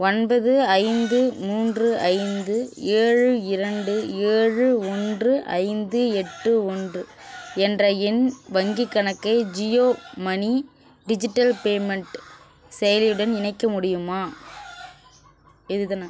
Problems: background sounds at intervals, background conversations at intervals